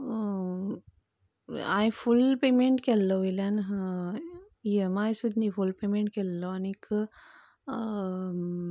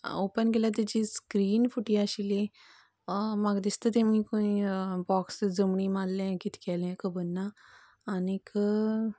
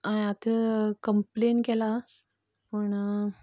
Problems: none marked